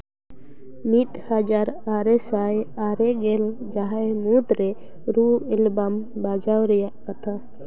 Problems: constant background noise, continuous background conversations